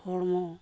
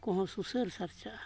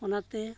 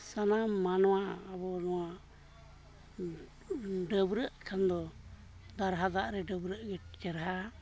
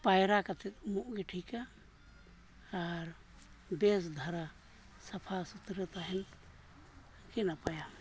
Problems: none marked